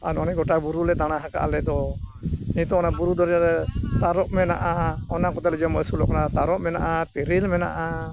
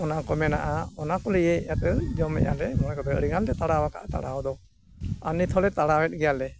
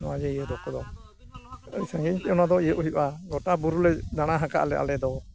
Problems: none marked